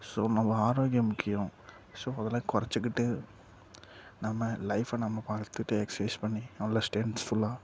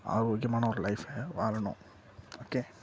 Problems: low volume